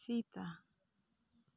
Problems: low volume